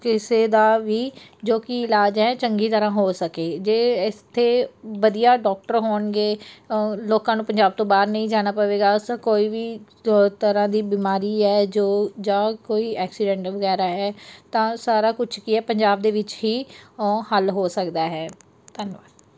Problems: background sounds at intervals